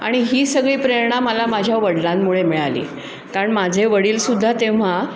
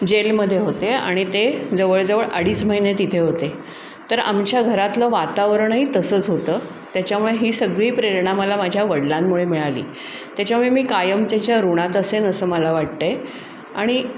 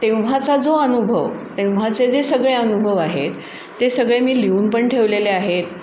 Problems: constant background noise